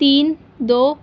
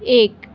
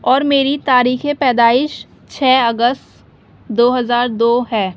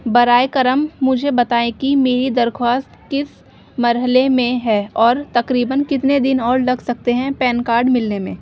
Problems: constant background noise